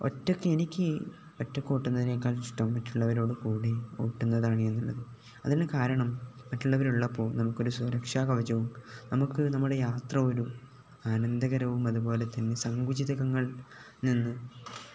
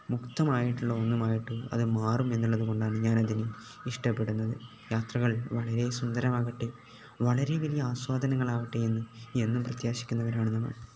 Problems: none marked